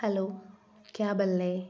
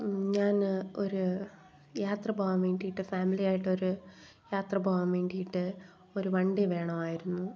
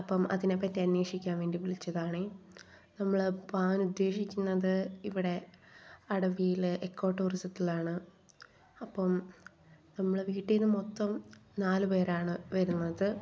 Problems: none marked